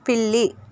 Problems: none marked